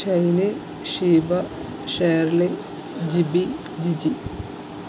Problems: constant background noise